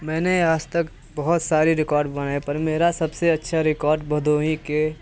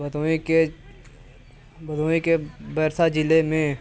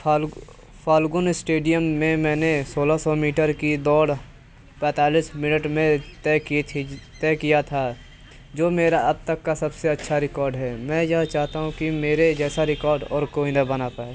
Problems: constant background noise